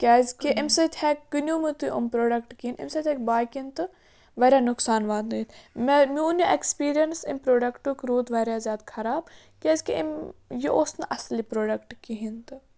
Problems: background sounds at intervals